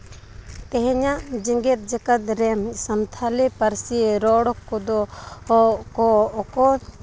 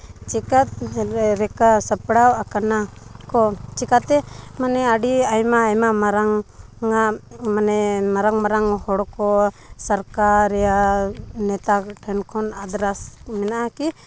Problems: constant background noise